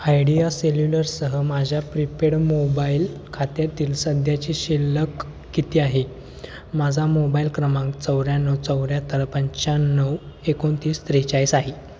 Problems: constant background noise